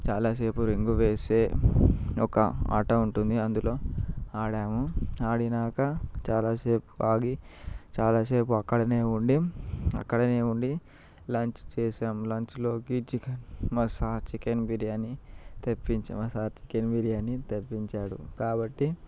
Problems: background sounds at intervals, low volume